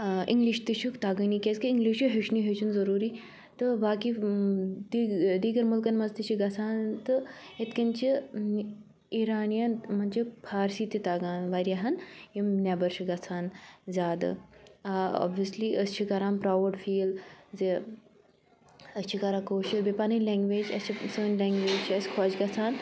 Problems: constant background noise